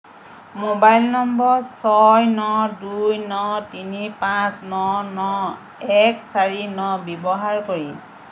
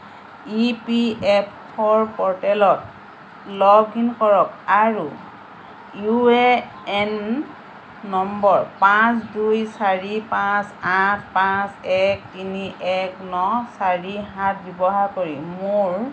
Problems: constant background noise